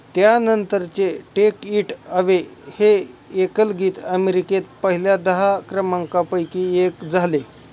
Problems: none marked